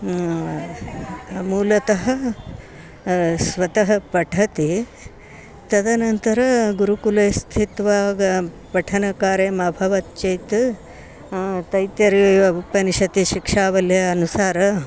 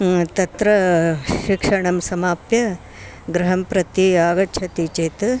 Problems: constant background noise, continuous background conversations